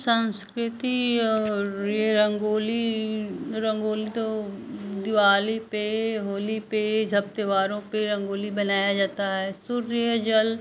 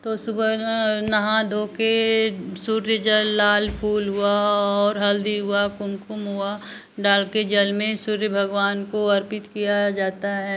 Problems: constant background noise